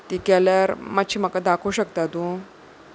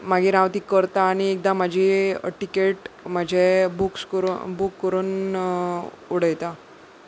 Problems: background sounds at intervals